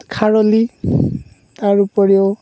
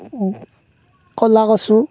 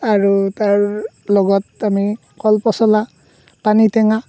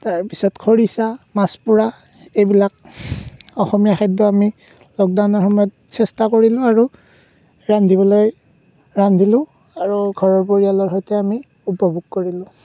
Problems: none marked